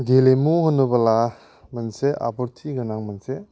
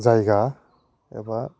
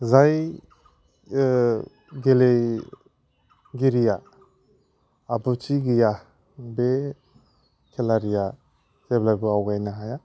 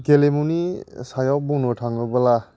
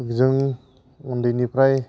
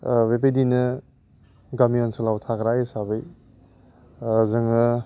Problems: low volume